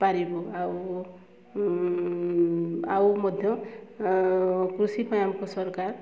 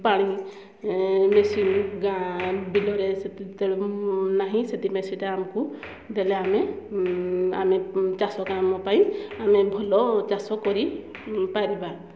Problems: background sounds at intervals, low volume